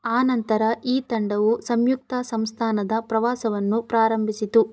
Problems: none marked